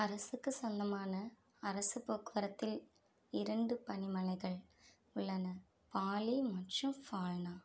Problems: low volume